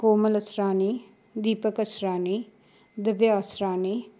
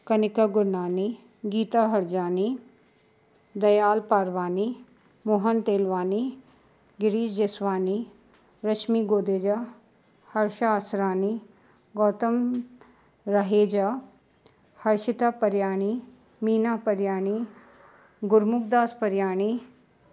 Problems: constant background noise